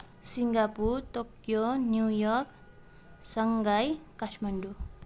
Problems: none marked